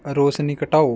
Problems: background sounds at intervals